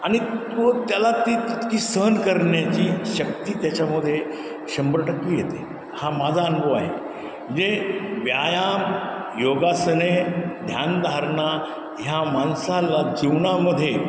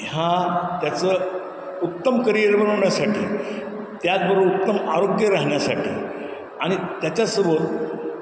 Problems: constant background noise, background conversations at intervals